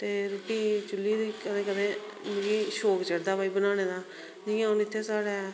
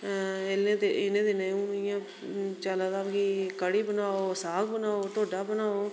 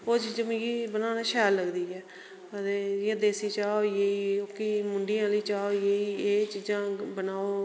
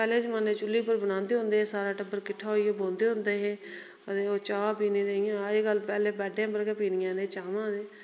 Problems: background sounds at intervals, echo